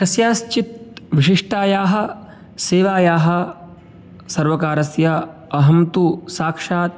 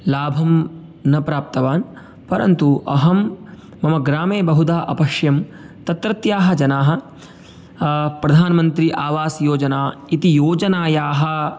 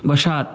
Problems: none marked